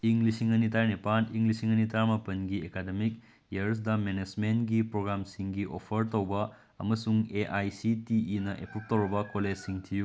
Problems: background sounds at intervals